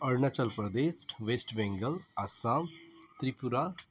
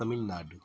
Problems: background sounds at intervals